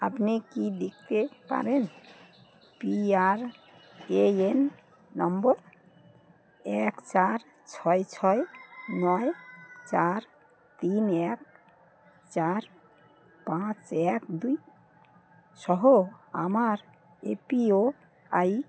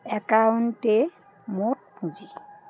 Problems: none marked